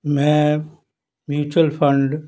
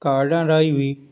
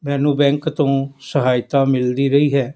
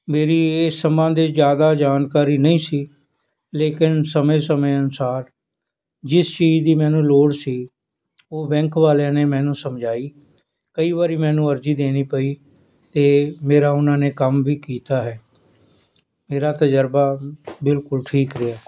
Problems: none marked